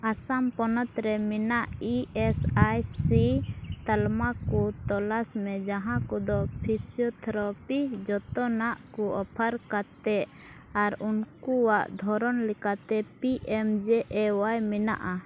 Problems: constant background noise